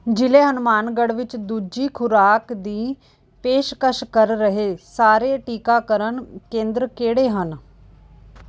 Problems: background sounds at intervals